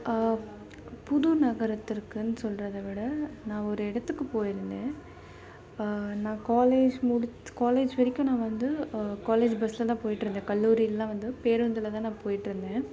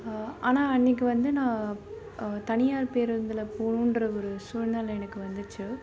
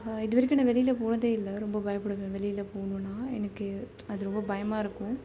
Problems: low volume